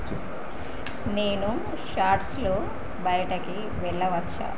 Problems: low volume